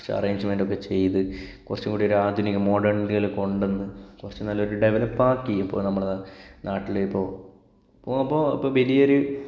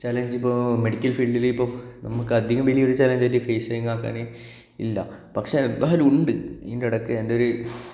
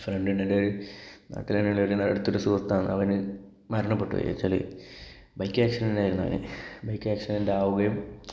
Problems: none marked